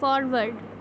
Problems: constant background noise